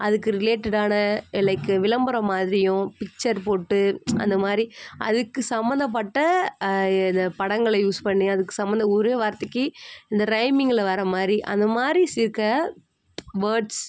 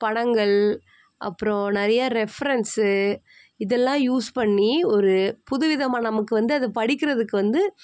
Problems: constant background noise